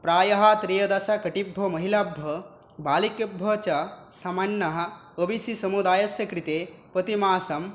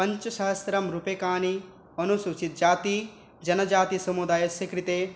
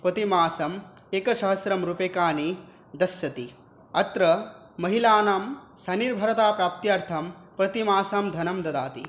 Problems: background sounds at intervals